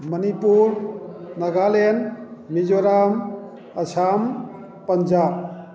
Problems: background conversations at intervals